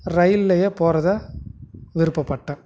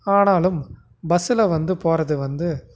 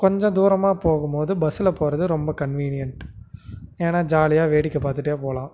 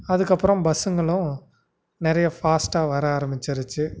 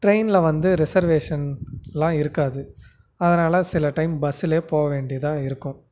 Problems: background sounds at intervals